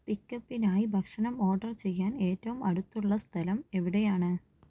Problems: low volume